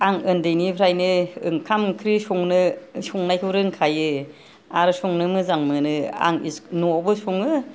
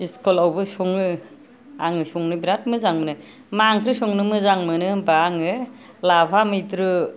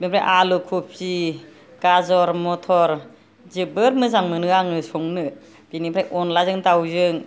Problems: none marked